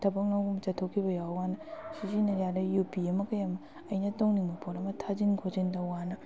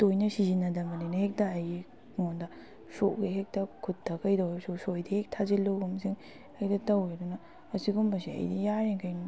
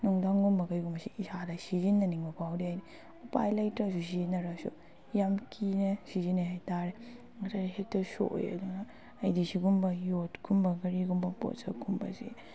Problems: background sounds at intervals